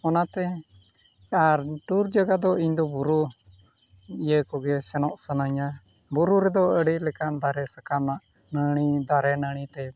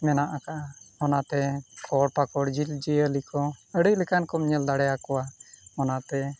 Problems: none marked